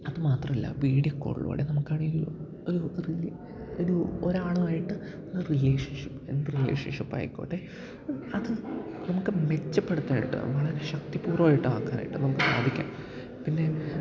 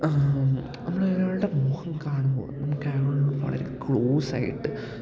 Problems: background sounds at intervals, low volume